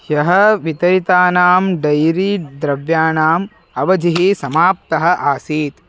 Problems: background sounds at intervals